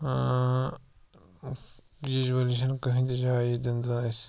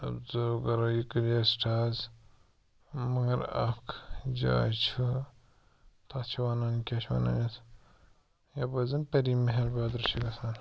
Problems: background sounds at intervals